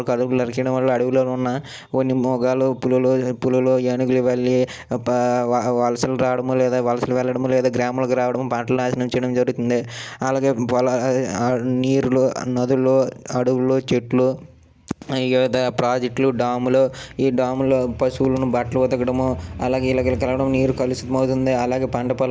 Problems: none marked